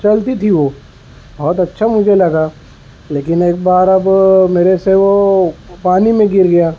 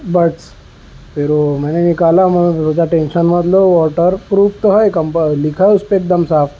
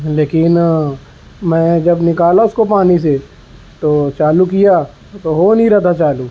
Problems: constant background noise